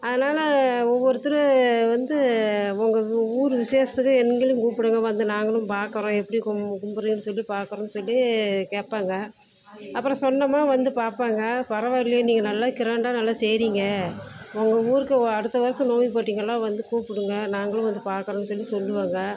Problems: constant background noise, background conversations at intervals